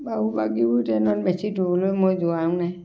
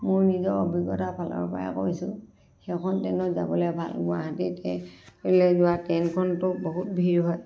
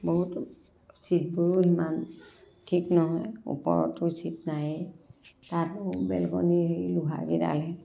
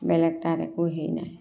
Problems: none marked